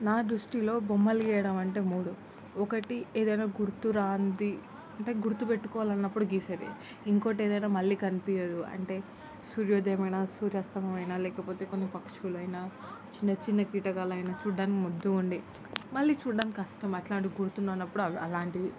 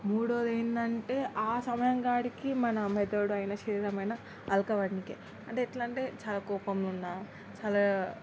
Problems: constant background noise, background conversations at intervals